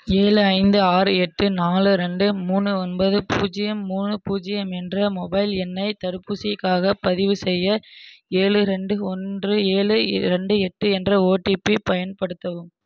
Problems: none marked